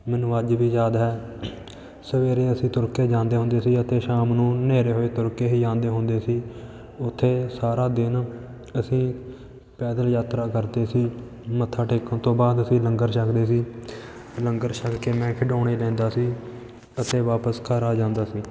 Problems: background sounds at intervals, continuous background conversations